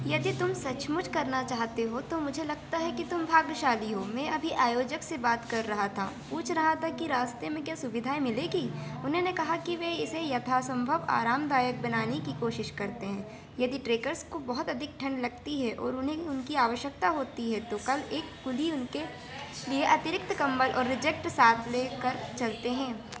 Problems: none marked